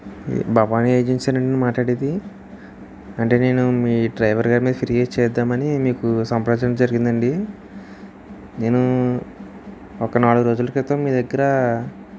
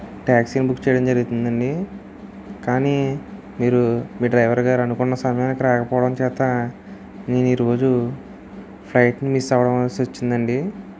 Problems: constant background noise